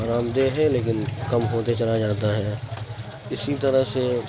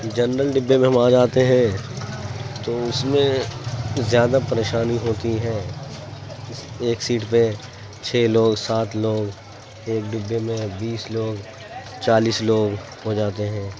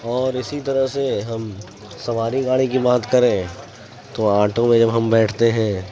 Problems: constant background noise